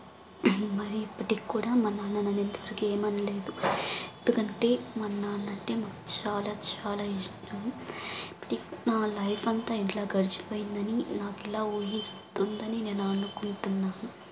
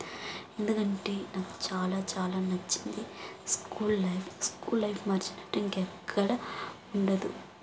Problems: constant background noise